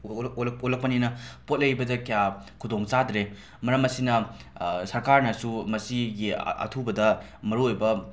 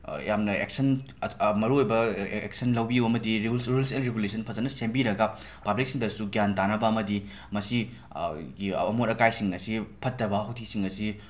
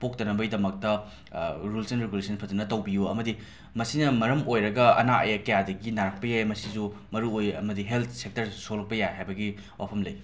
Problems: constant background noise